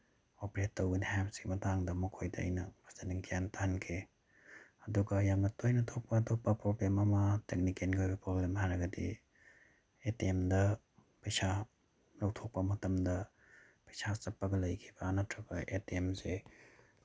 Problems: none marked